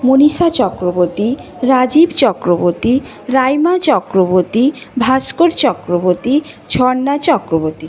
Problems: continuous background conversations